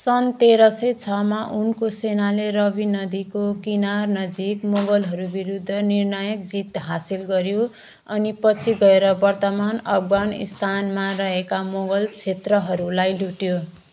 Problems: background sounds at intervals